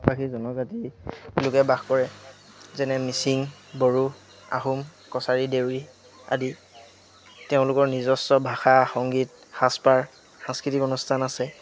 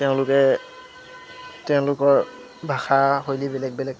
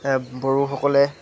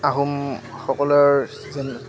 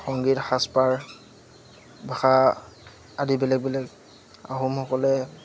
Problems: constant background noise, background conversations at intervals